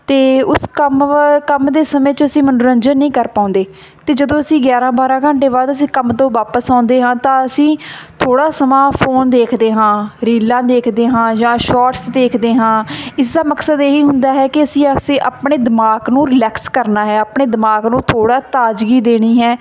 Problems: constant background noise